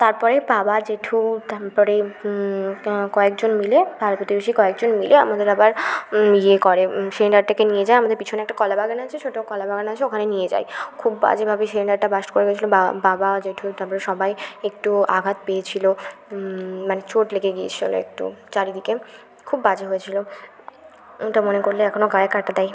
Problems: constant background noise, background conversations at intervals